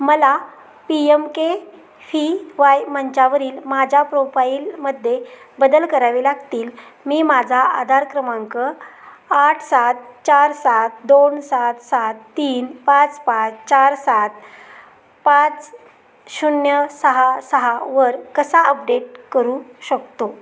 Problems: constant background noise, background conversations at intervals